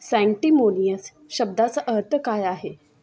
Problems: background sounds at intervals, continuous background conversations